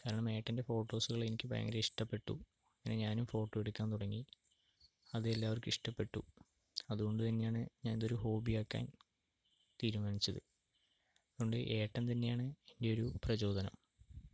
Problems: low volume